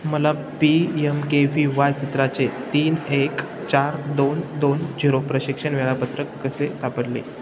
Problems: constant background noise